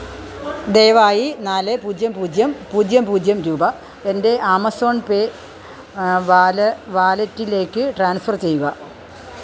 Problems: none marked